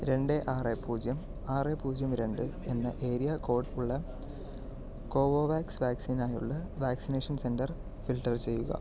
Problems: low volume